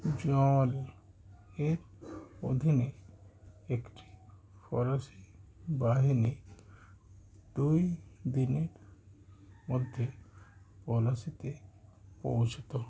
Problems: background sounds at intervals